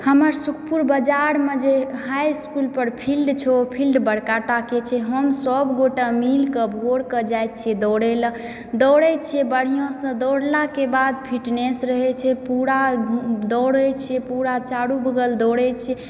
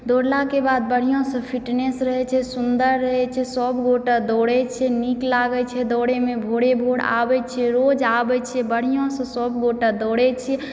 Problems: background sounds at intervals, background conversations at intervals